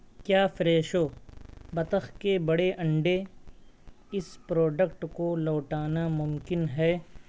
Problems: background sounds at intervals